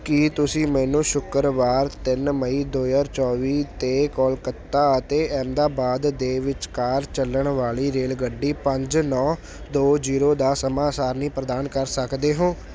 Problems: none marked